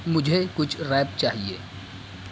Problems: constant background noise